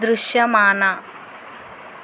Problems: constant background noise